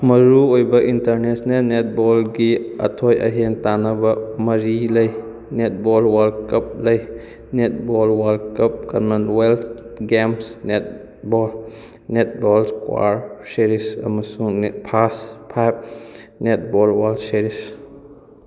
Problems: background sounds at intervals